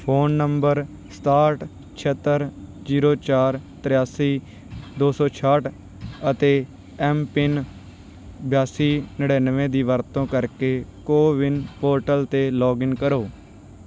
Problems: background sounds at intervals